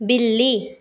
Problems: constant background noise